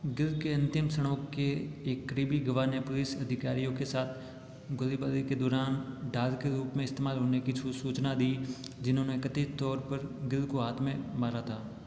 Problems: constant background noise, echo, low volume